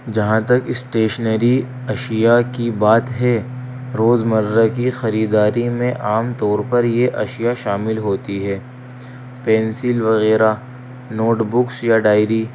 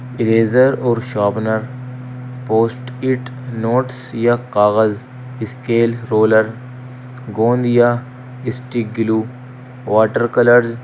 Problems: constant background noise